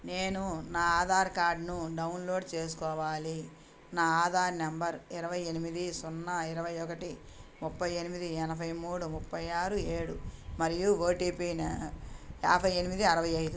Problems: none marked